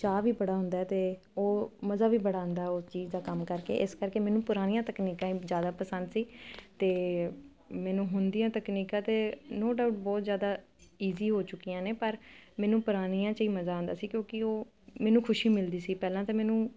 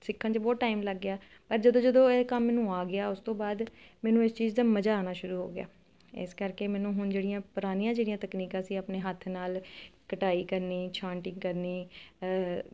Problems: none marked